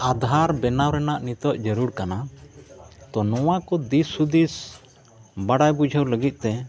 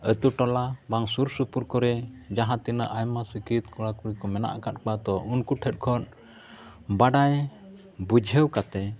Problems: continuous background conversations